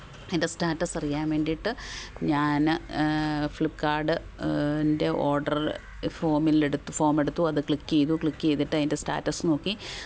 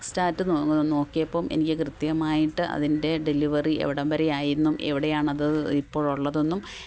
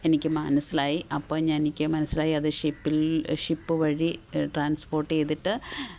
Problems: background sounds at intervals